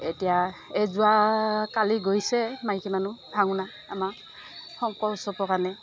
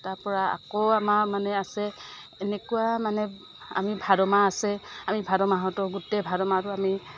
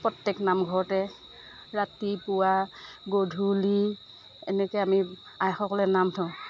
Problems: none marked